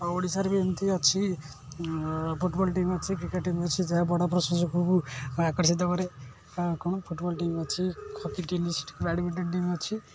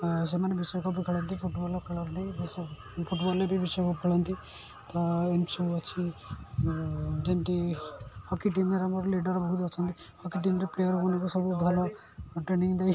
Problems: constant background noise